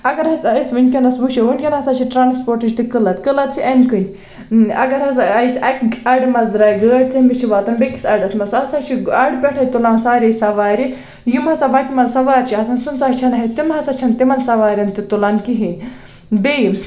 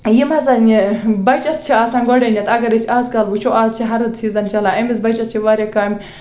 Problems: constant background noise